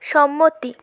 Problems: none marked